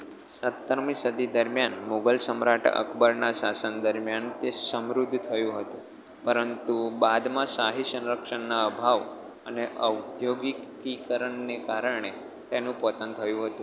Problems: none marked